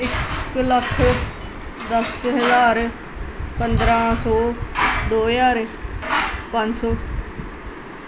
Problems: constant background noise